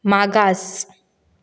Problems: none marked